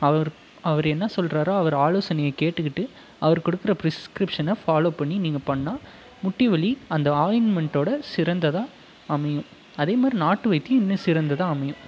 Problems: background conversations at intervals